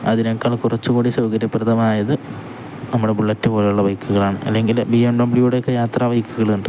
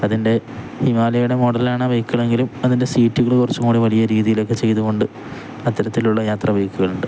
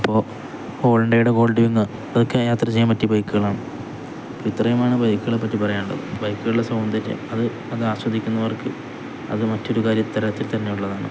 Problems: constant background noise